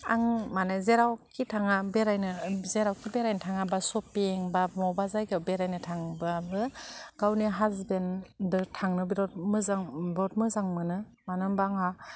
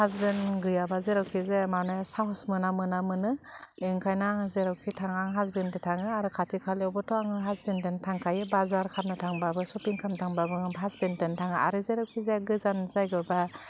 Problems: low volume